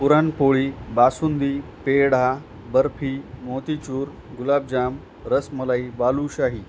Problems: constant background noise